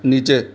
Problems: none marked